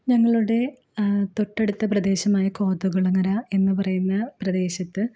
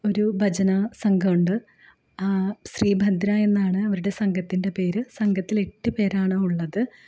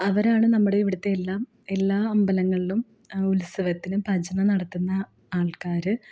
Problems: none marked